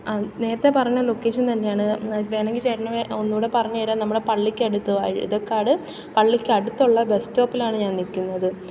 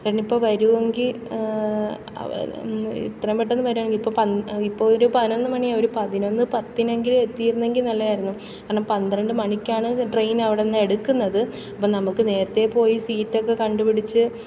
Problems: background sounds at intervals